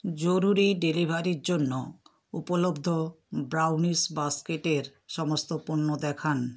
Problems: constant background noise